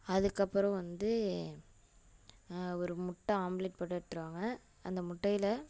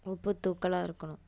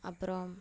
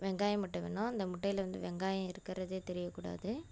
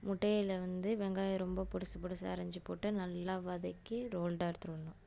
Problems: constant background noise